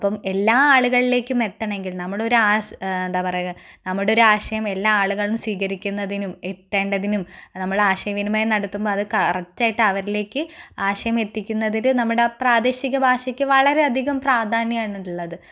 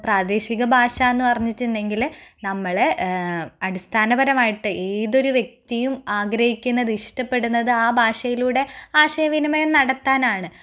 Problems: none marked